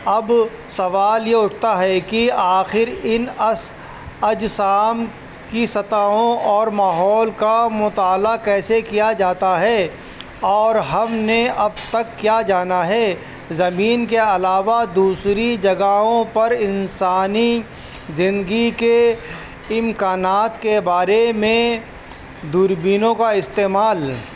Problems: constant background noise